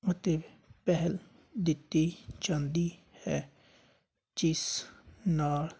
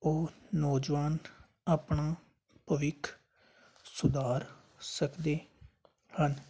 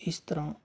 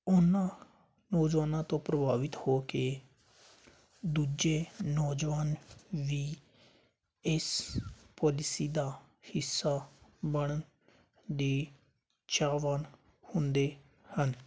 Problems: none marked